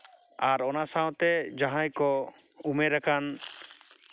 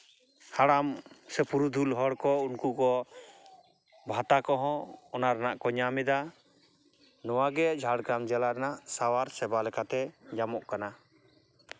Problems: none marked